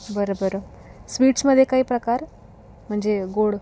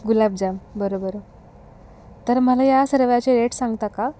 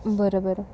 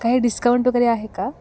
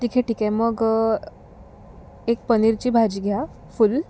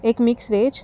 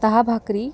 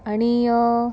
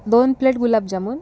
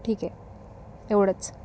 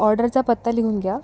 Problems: background sounds at intervals, background conversations at intervals